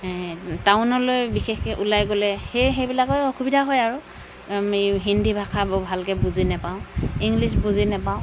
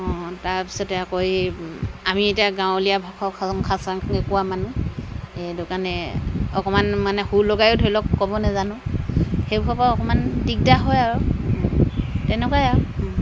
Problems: constant background noise